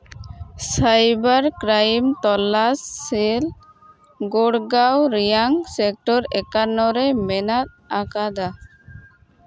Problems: constant background noise